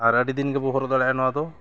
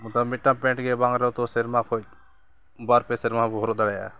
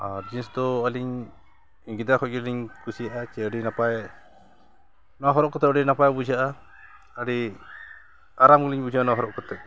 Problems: none marked